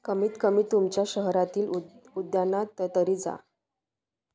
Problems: constant background noise